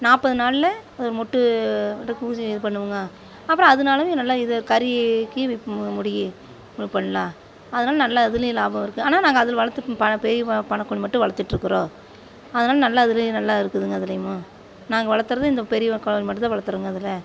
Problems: none marked